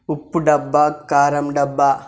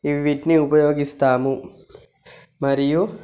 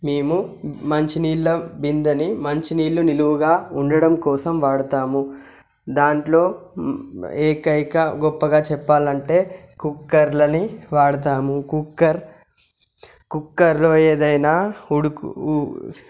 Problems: none marked